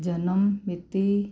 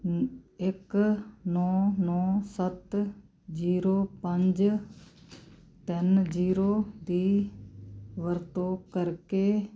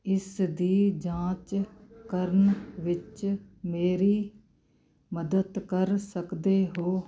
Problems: constant background noise